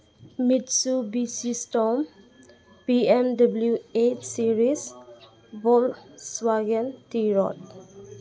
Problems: background sounds at intervals